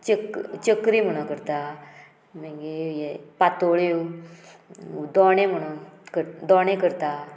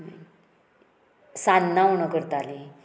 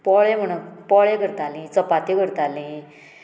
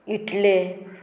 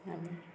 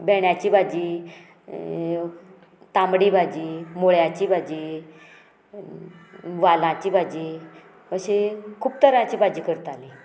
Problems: background sounds at intervals, background conversations at intervals